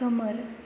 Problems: constant background noise